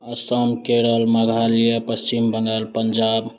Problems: none marked